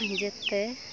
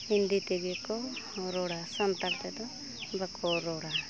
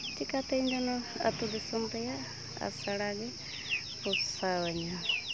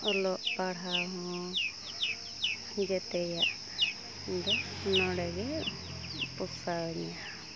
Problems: constant background noise, continuous background conversations